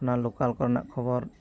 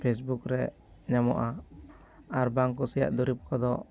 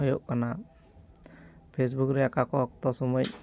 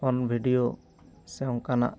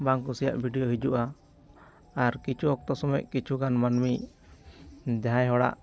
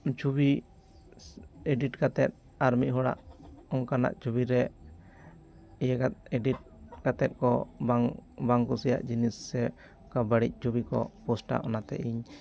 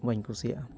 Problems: background sounds at intervals